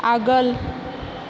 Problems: constant background noise